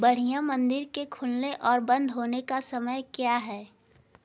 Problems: background sounds at intervals